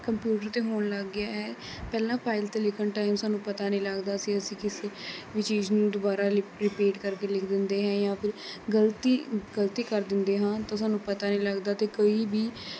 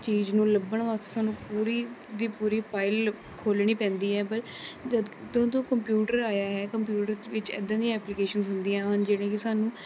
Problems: constant background noise, background conversations at intervals